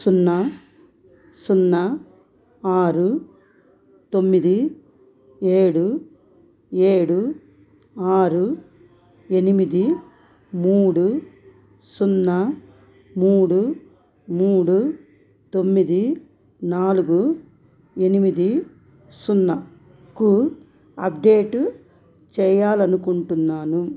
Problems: background sounds at intervals